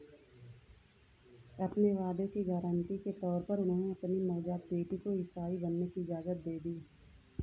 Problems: none marked